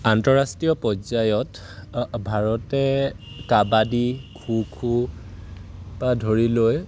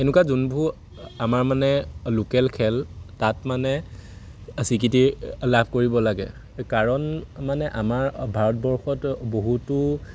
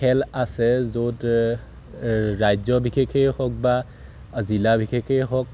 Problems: none marked